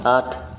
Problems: background sounds at intervals